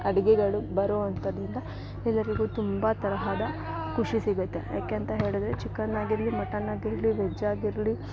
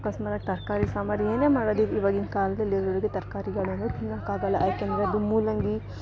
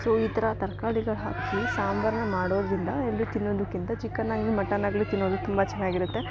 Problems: background sounds at intervals